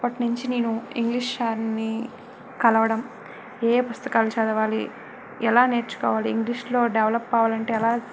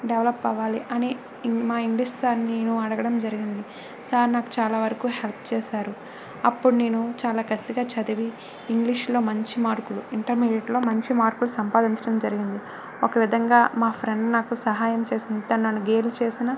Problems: constant background noise